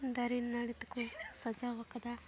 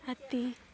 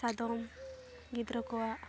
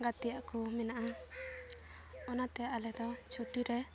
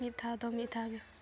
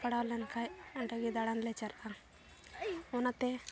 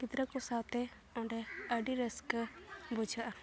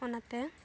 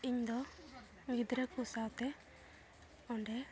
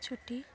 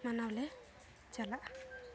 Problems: background sounds at intervals, background conversations at intervals